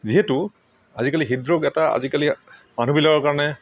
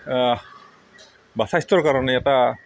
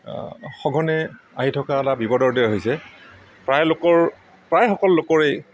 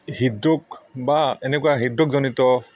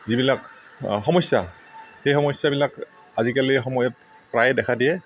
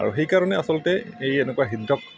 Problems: background sounds at intervals